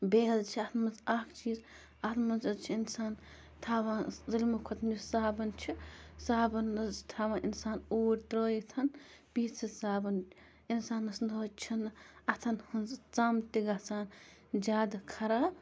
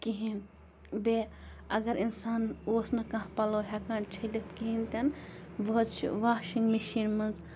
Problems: constant background noise